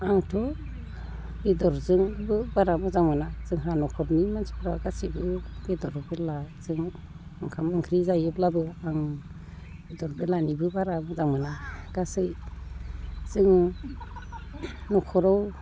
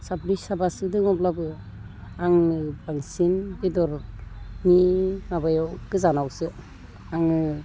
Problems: background conversations at intervals, low volume